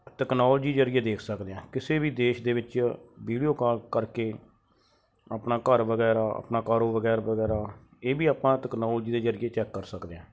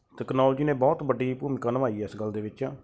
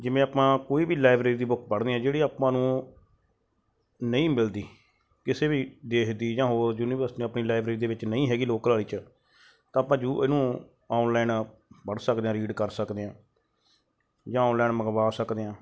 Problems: none marked